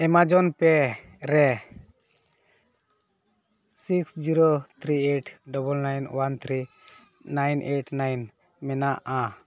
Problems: none marked